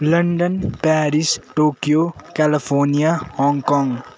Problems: constant background noise